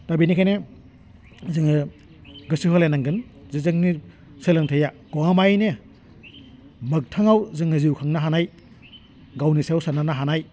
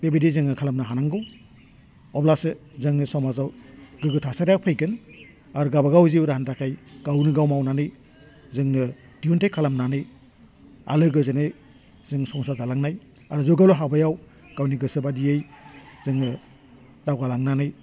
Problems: none marked